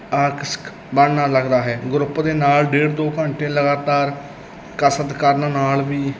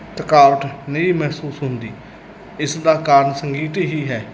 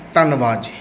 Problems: constant background noise